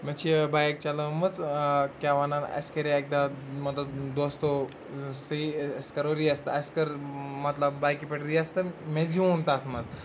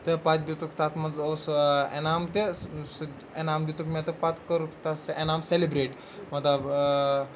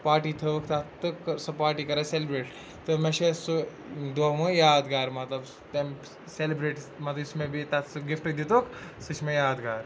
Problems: constant background noise